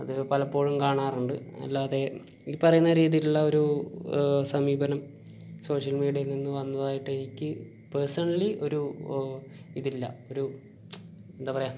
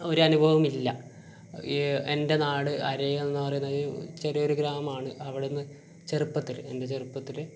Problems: constant background noise, low volume